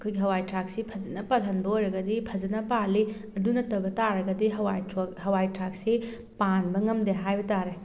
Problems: none marked